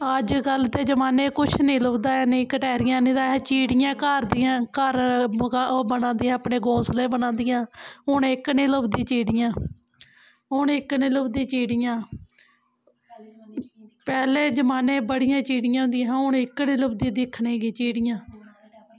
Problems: background sounds at intervals